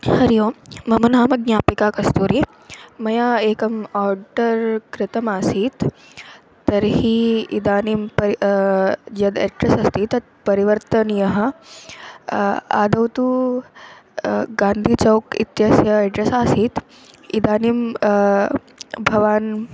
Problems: constant background noise